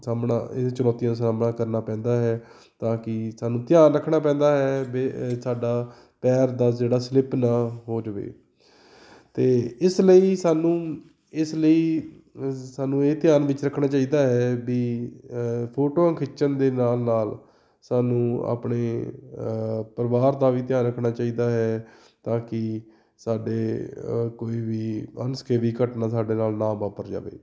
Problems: none marked